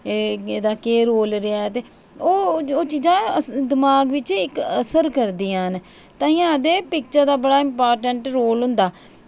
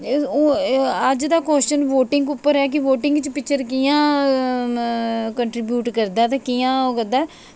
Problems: none marked